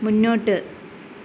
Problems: none marked